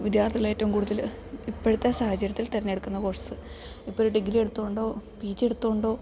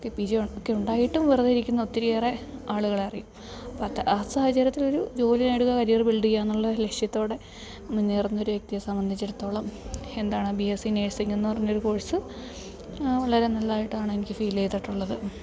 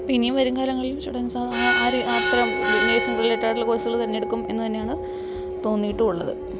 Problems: background sounds at intervals, background conversations at intervals